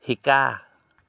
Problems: none marked